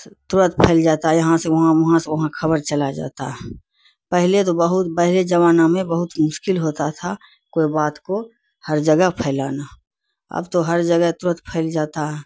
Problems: none marked